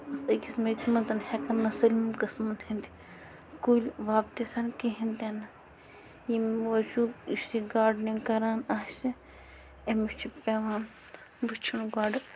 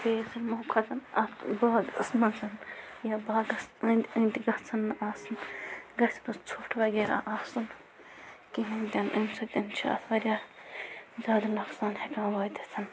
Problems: constant background noise